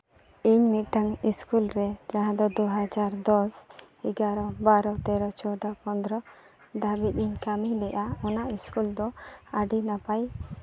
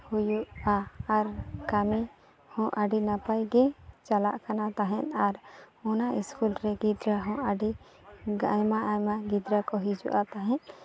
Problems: none marked